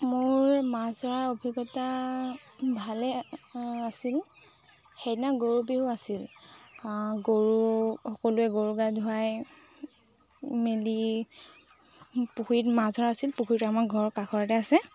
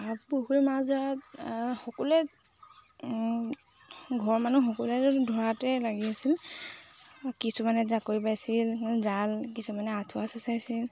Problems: constant background noise